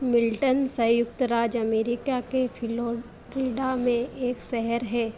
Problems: constant background noise